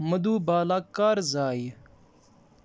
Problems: none marked